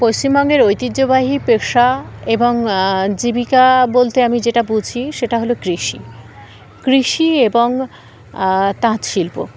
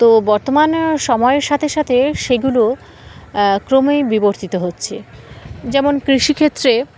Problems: constant background noise, continuous background conversations